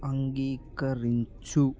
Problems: constant background noise